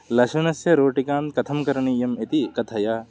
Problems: background sounds at intervals